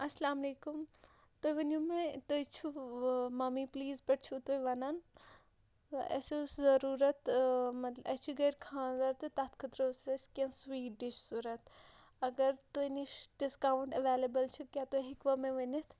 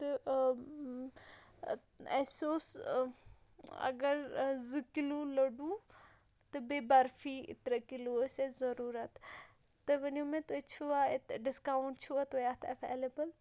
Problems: none marked